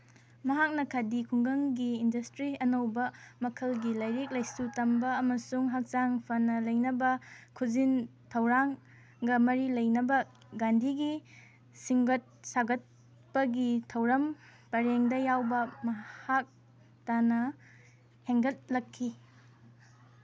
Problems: background sounds at intervals